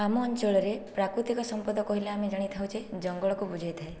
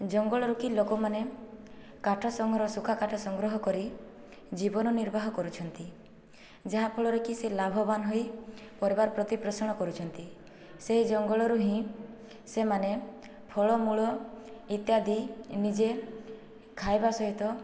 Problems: low volume